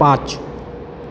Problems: constant background noise